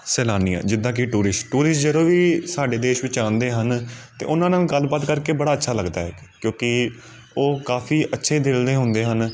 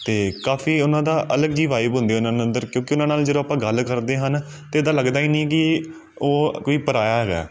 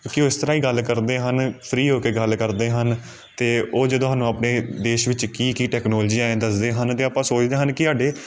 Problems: background sounds at intervals